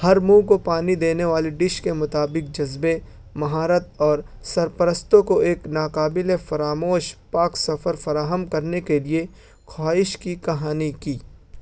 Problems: none marked